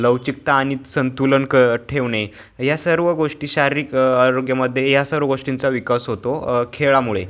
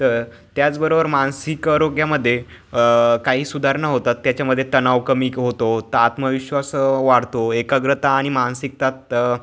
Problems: constant background noise